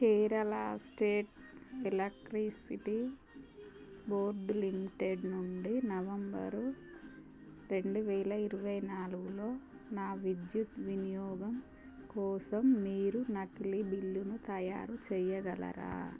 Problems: constant background noise